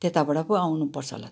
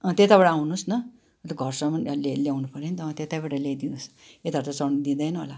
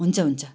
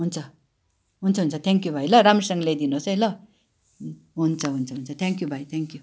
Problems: background sounds at intervals